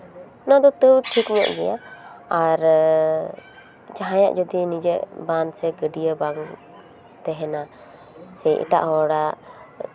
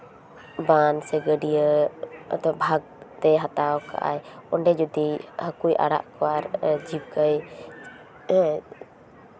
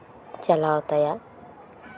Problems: none marked